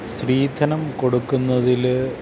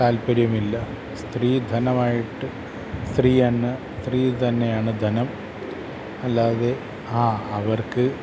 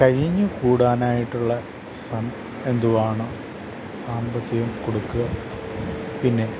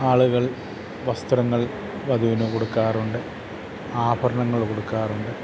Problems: constant background noise